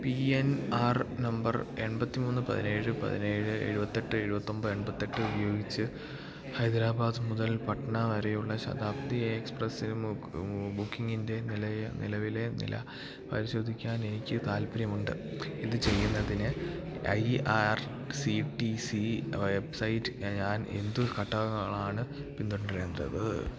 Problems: constant background noise